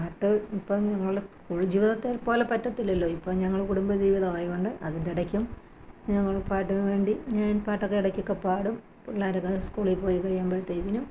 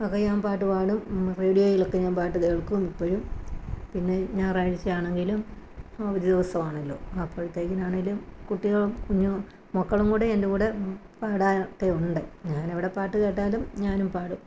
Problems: background sounds at intervals